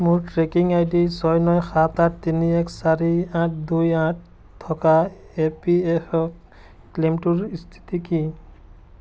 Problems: constant background noise